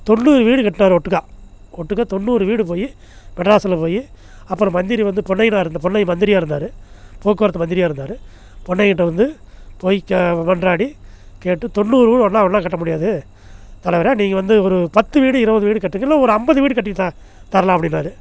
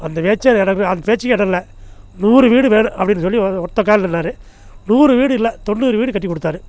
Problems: none marked